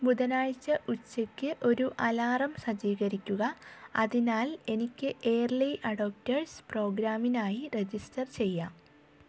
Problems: none marked